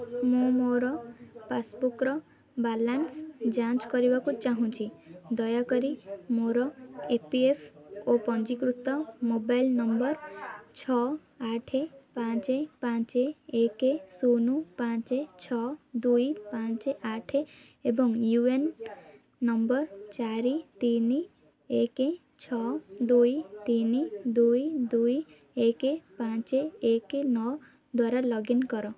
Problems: constant background noise